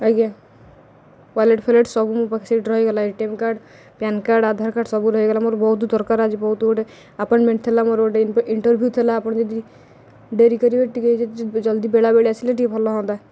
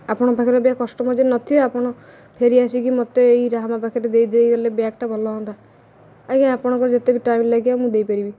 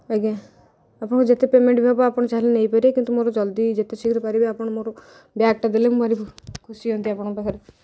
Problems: none marked